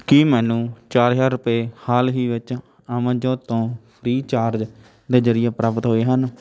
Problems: constant background noise, background conversations at intervals